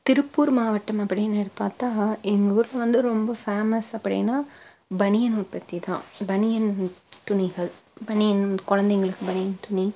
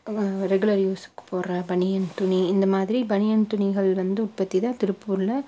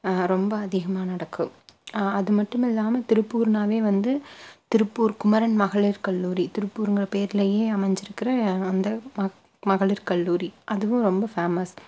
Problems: none marked